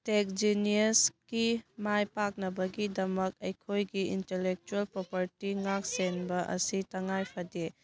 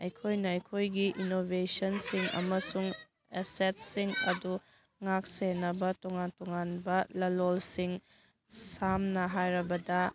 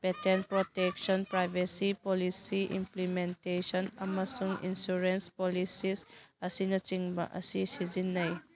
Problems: background conversations at intervals